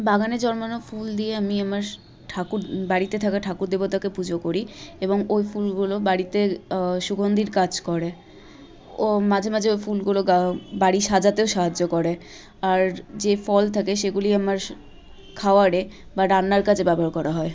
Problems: constant background noise, continuous background conversations